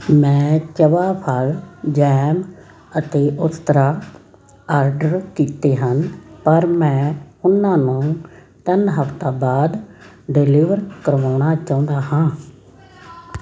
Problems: constant background noise, background conversations at intervals